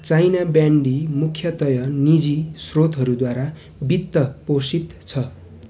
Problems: constant background noise